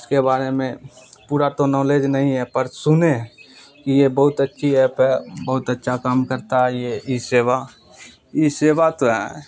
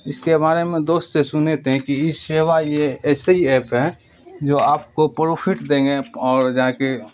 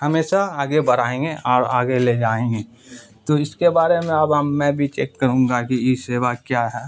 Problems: constant background noise